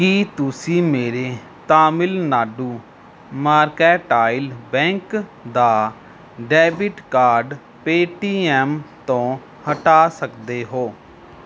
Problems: background sounds at intervals